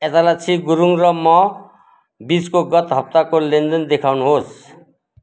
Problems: background sounds at intervals